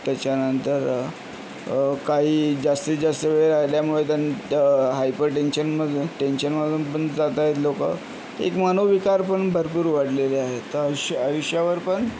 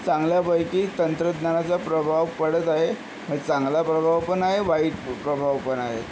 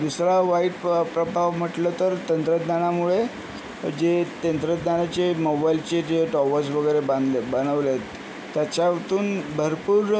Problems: constant background noise